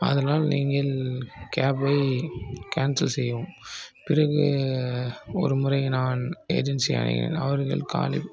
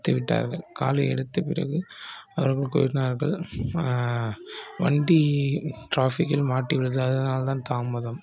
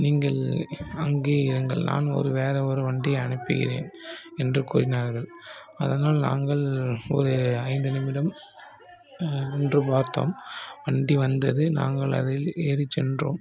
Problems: low volume